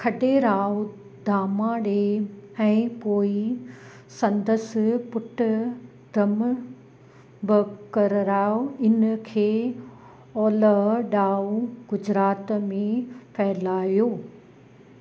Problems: constant background noise